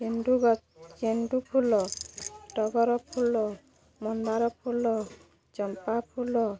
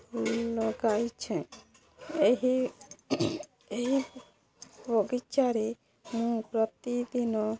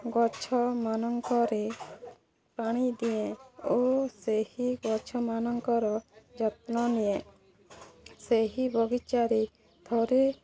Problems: constant background noise, continuous background conversations